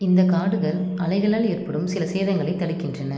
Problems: background sounds at intervals